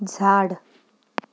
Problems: none marked